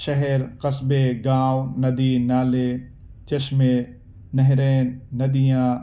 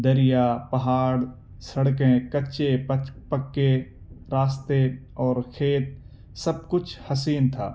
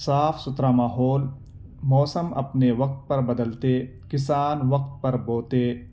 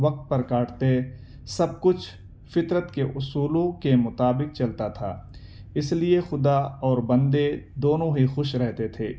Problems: none marked